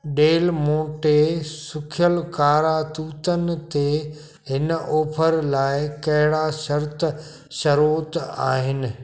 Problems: constant background noise